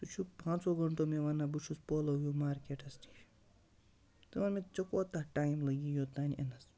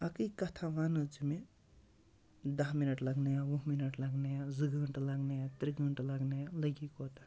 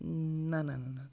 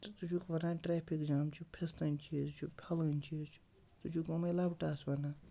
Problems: low volume